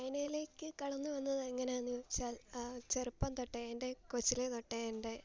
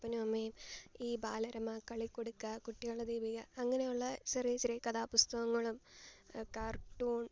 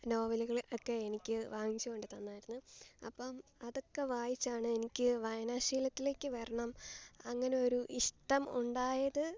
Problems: none marked